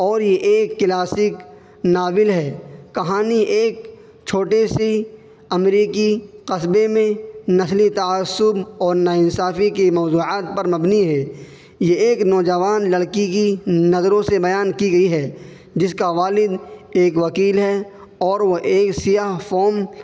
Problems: constant background noise